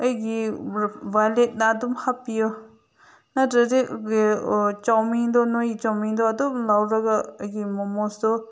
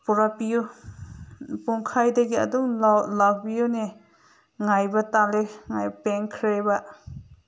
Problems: none marked